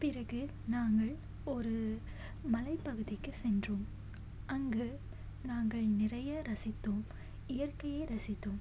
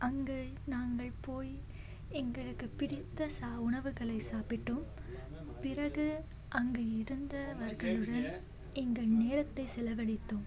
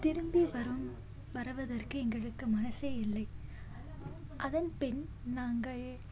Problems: background sounds at intervals, low volume